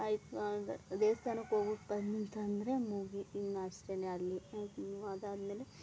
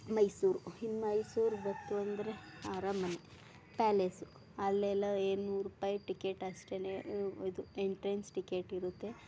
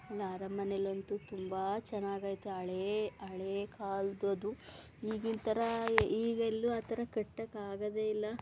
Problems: background sounds at intervals